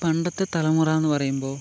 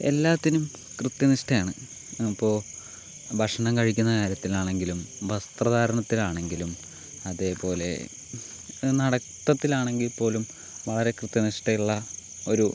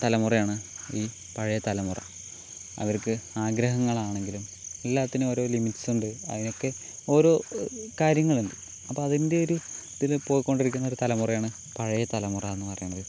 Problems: constant background noise